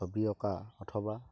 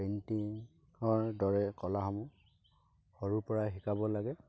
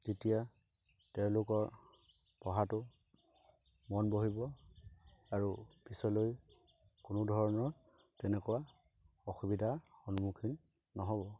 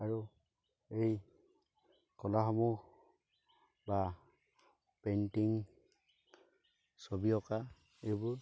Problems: constant background noise